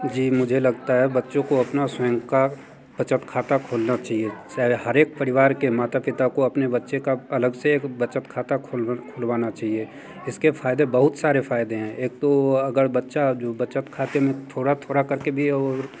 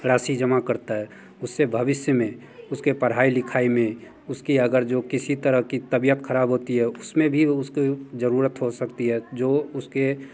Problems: background conversations at intervals